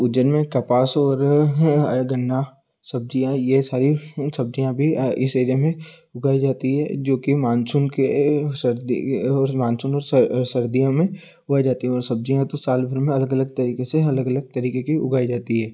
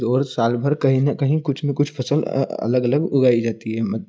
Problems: constant background noise